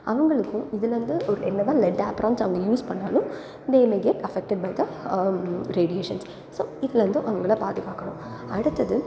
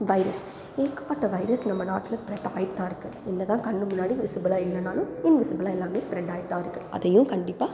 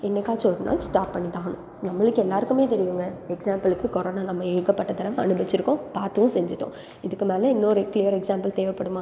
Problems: background conversations at intervals